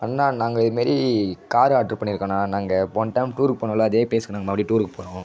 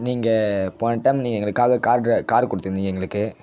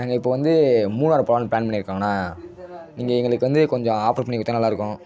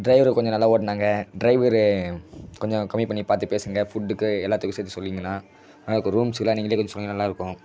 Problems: background sounds at intervals